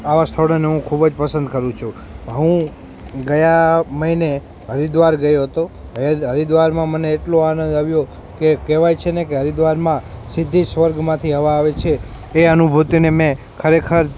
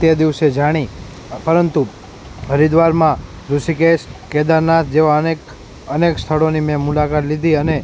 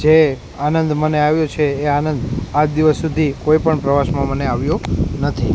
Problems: constant background noise